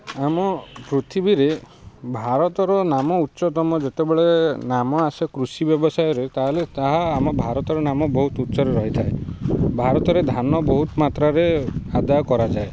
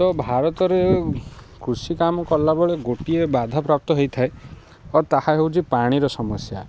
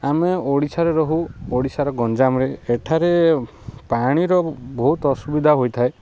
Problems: constant background noise